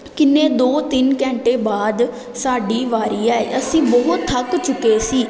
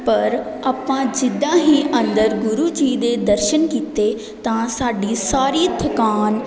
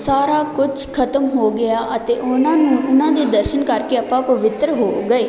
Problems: none marked